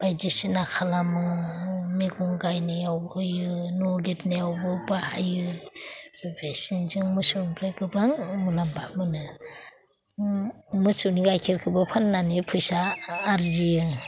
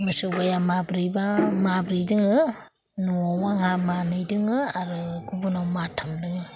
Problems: none marked